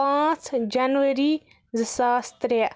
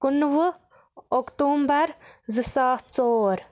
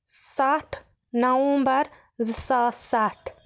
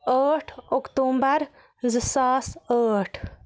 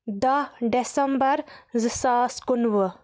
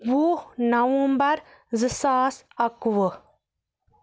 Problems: constant background noise